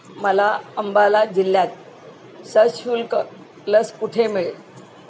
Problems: constant background noise